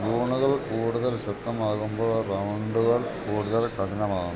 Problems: constant background noise